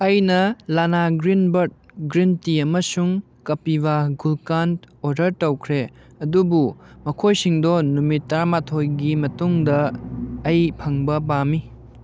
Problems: none marked